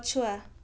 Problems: none marked